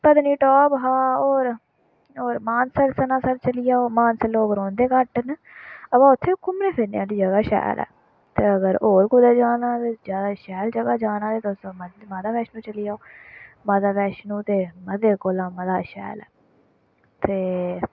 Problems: none marked